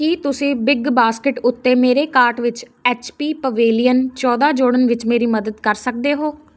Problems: constant background noise